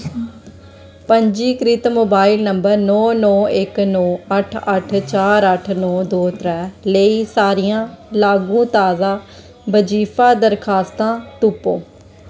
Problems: constant background noise